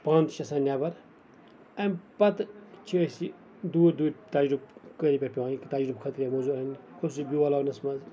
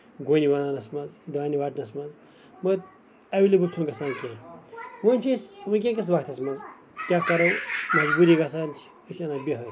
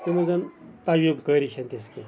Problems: background sounds at intervals, background conversations at intervals